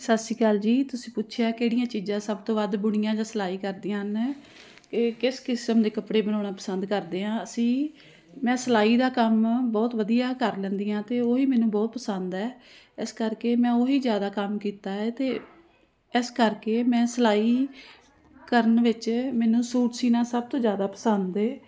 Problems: constant background noise